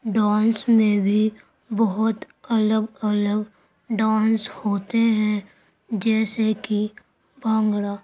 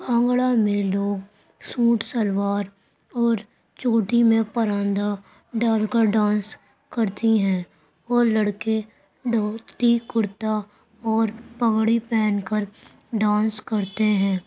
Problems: constant background noise